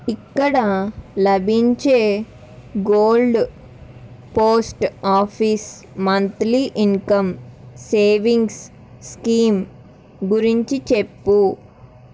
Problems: constant background noise